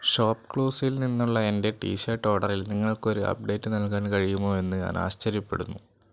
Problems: constant background noise